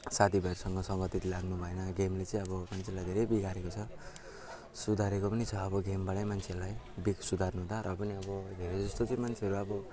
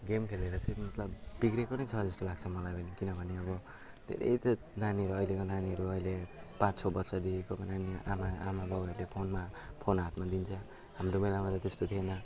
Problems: constant background noise, background conversations at intervals